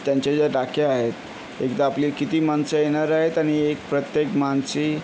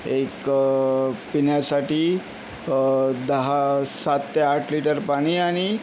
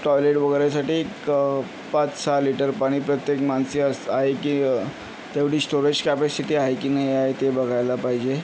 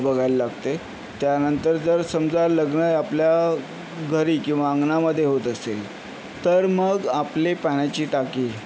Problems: constant background noise